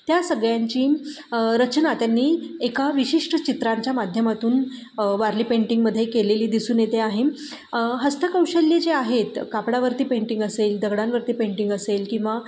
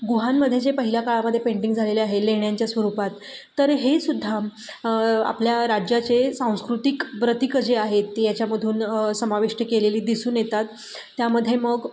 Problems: constant background noise, background conversations at intervals